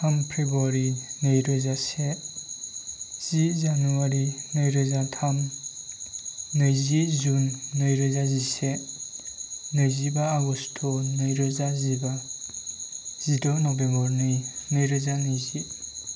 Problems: none marked